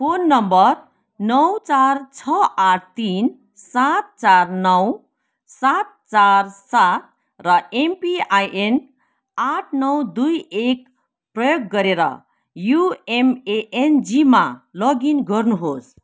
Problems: none marked